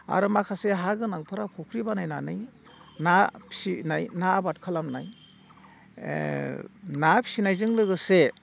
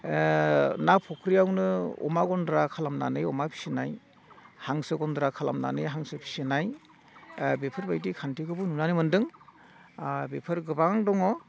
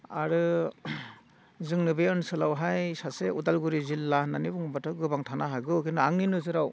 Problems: none marked